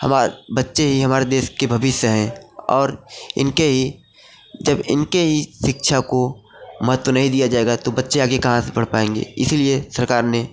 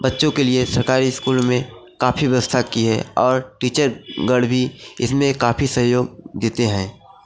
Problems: constant background noise, background conversations at intervals